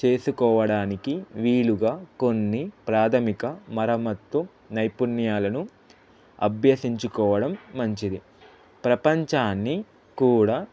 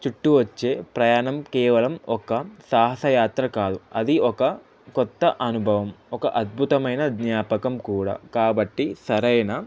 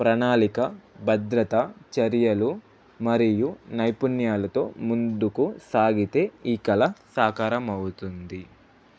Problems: constant background noise